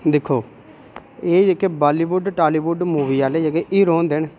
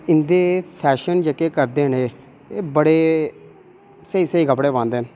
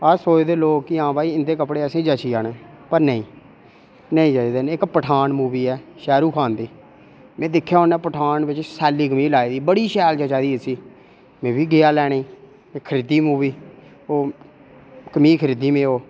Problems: none marked